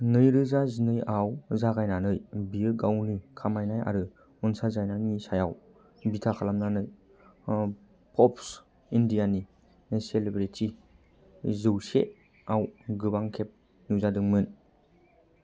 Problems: low volume